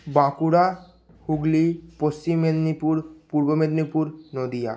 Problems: none marked